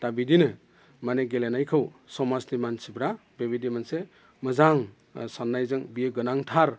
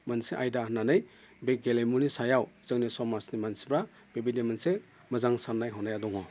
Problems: none marked